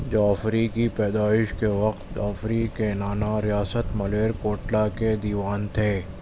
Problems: constant background noise